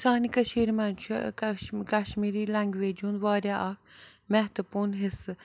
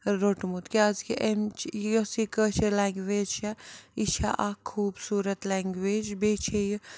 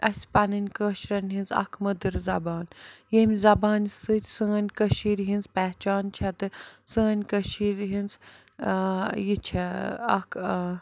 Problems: background sounds at intervals